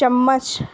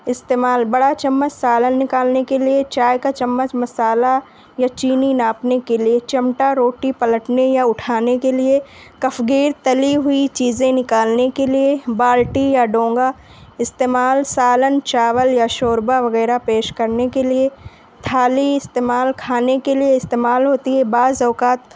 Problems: none marked